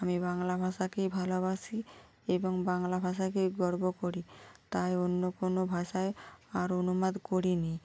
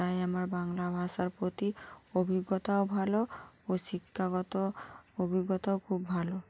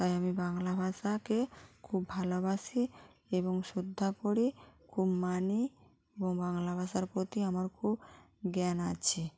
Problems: none marked